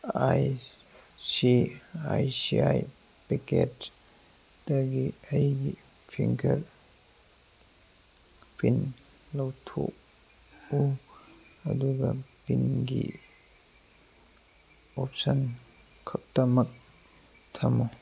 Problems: background sounds at intervals